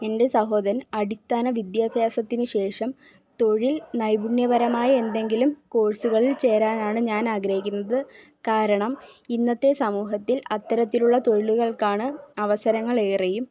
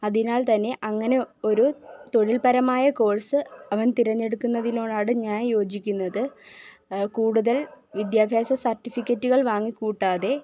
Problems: background sounds at intervals